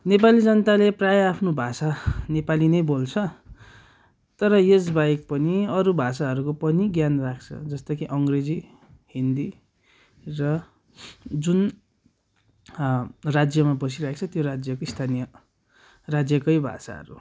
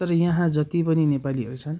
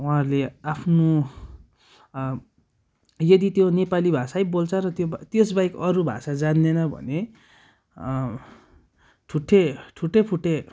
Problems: none marked